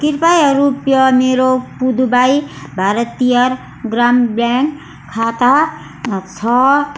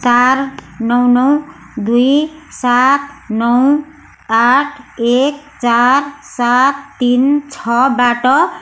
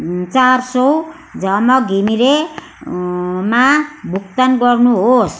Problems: none marked